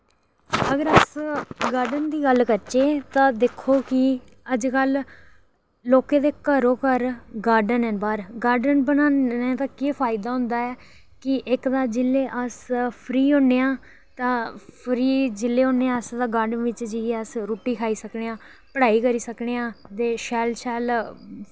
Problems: background sounds at intervals